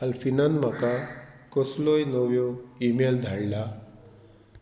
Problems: low volume